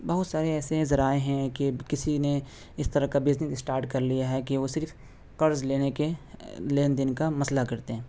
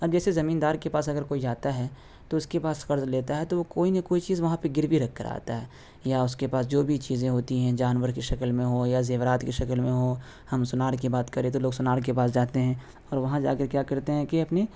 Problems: constant background noise